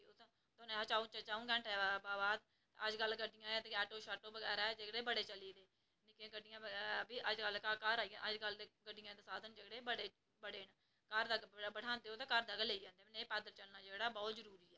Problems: none marked